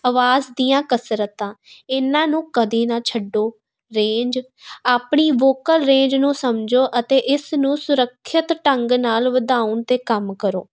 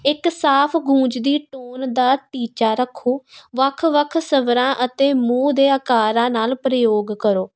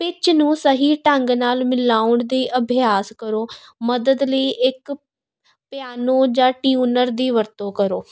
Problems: constant background noise